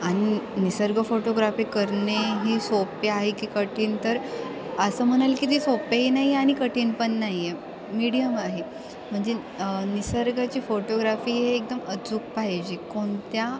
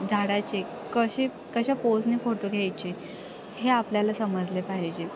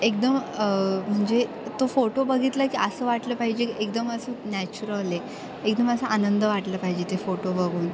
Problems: constant background noise